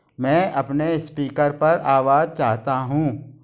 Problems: background sounds at intervals